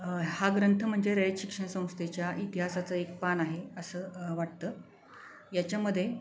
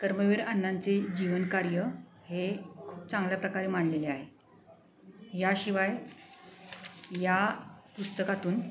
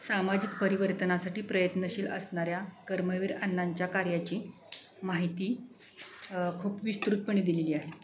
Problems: none marked